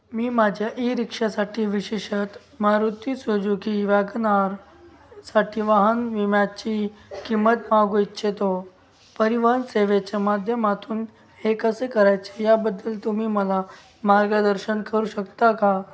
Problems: background sounds at intervals